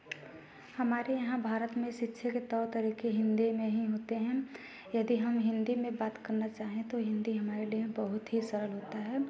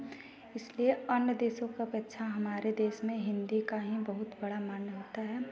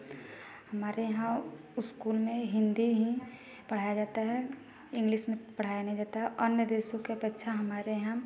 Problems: constant background noise, background conversations at intervals